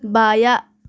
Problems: background sounds at intervals, background conversations at intervals